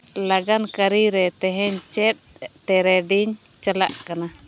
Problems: background sounds at intervals